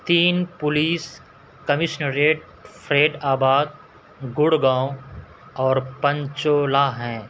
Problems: constant background noise